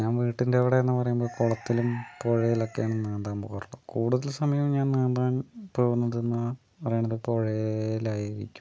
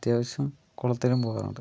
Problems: low volume